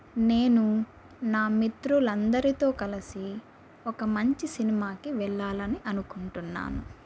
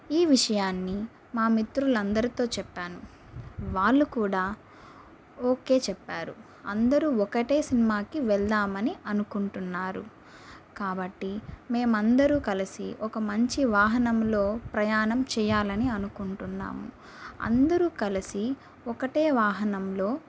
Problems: constant background noise